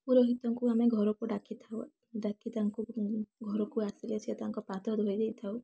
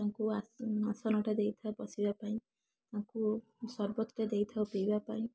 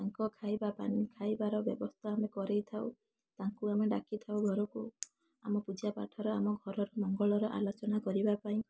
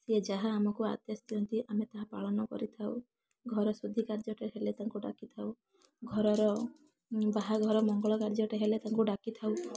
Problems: constant background noise